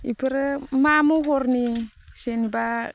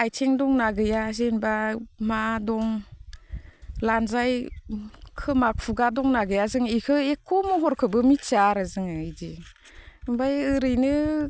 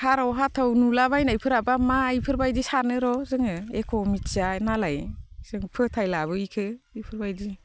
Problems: constant background noise